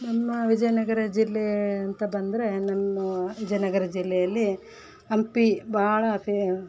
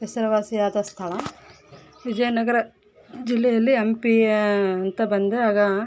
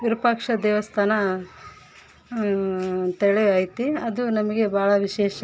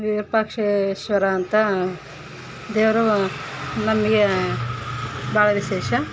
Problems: background sounds at intervals